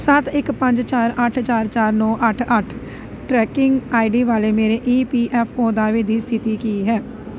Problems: constant background noise